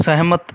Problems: background sounds at intervals